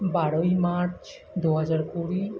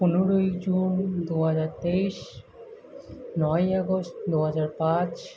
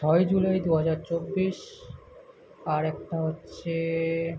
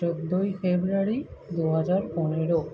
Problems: background conversations at intervals